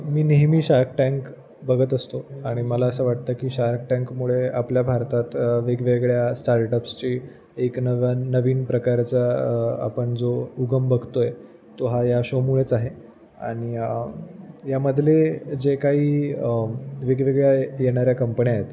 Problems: constant background noise, background conversations at intervals